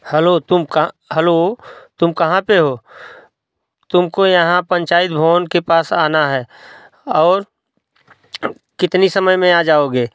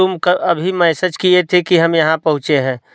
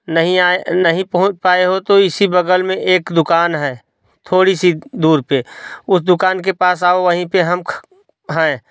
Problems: constant background noise